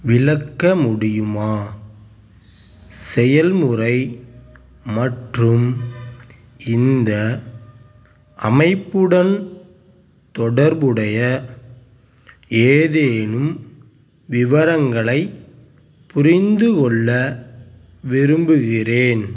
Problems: background sounds at intervals